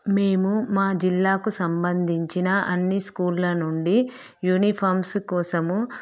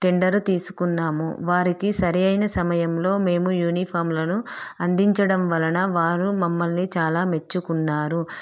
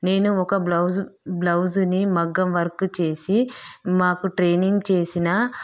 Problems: none marked